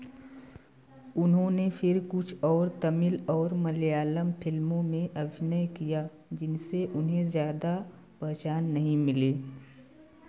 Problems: none marked